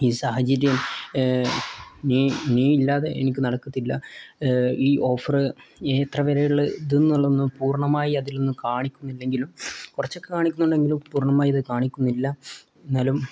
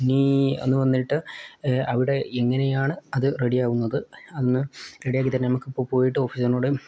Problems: none marked